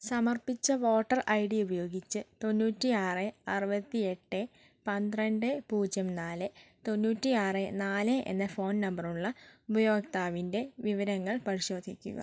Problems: none marked